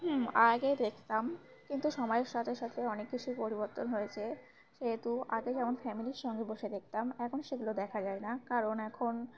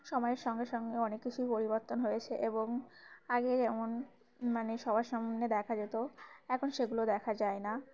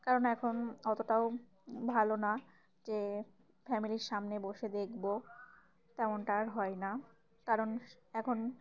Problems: constant background noise, background conversations at intervals